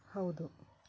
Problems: low volume